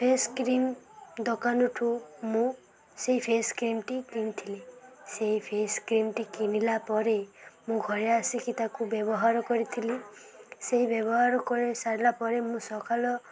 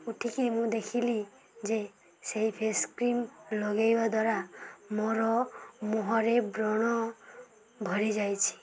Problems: constant background noise, continuous background conversations